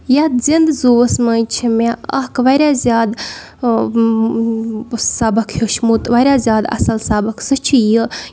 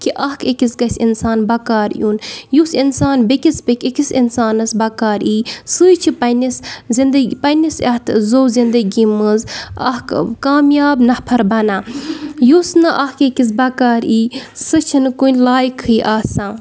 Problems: background sounds at intervals